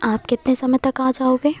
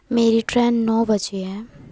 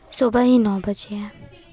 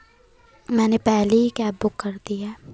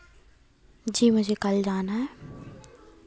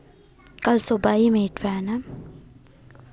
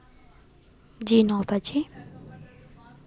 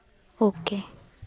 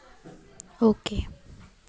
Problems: constant background noise